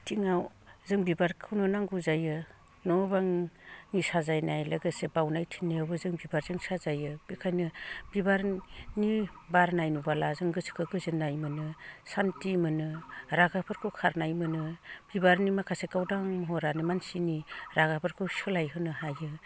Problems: low volume